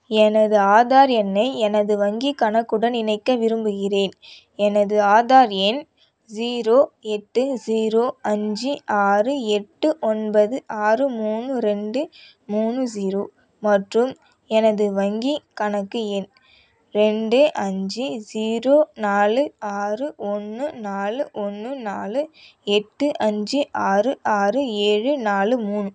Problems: none marked